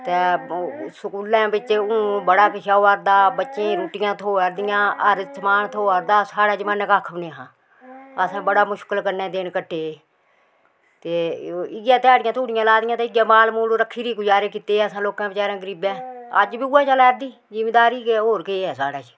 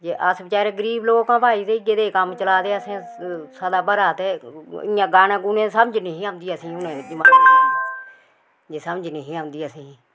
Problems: background sounds at intervals